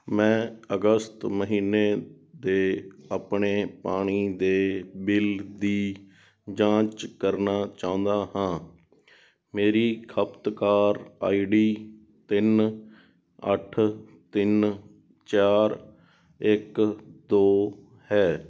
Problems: background sounds at intervals